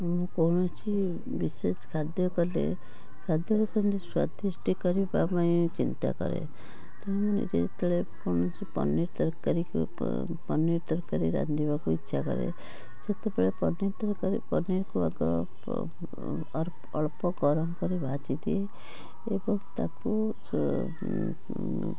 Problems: constant background noise